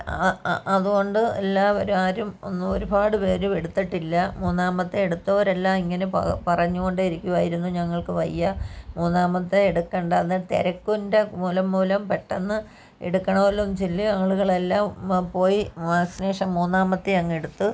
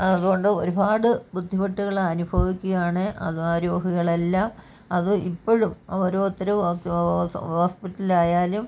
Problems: background conversations at intervals